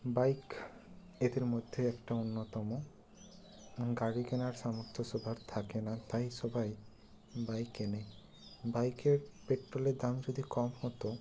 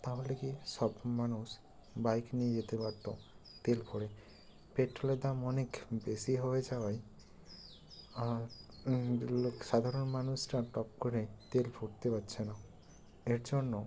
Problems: constant background noise